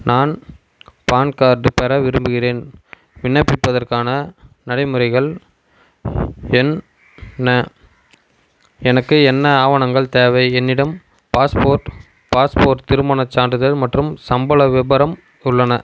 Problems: constant background noise